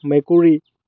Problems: background sounds at intervals